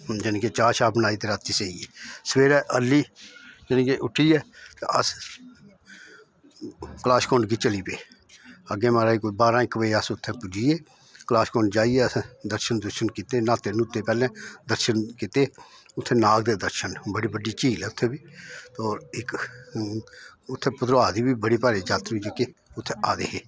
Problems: none marked